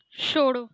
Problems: background sounds at intervals